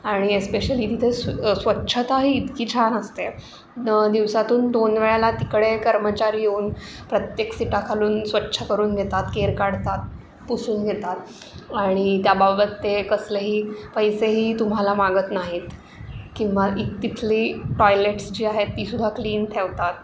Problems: constant background noise